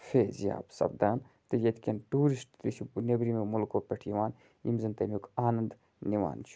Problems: constant background noise